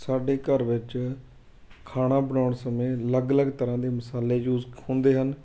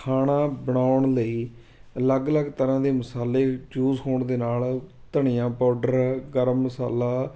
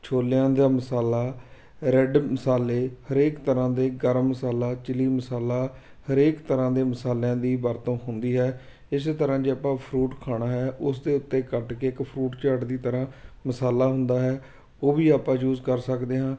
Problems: constant background noise